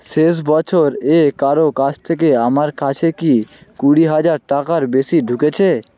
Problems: none marked